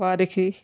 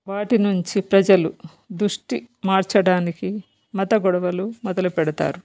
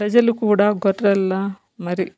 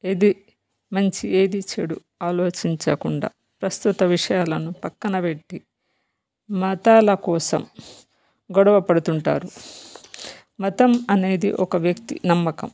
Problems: background conversations at intervals